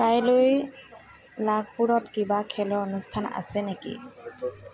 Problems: constant background noise, background conversations at intervals